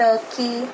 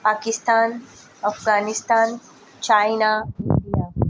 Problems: background sounds at intervals